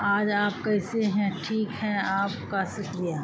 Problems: constant background noise